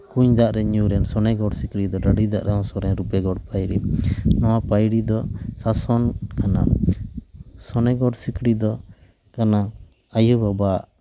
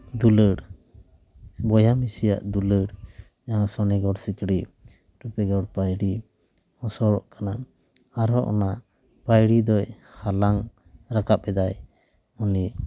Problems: none marked